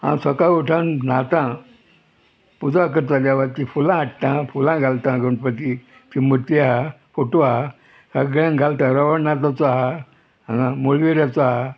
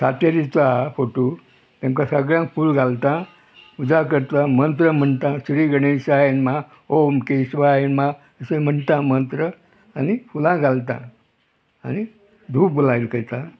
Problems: background sounds at intervals, background conversations at intervals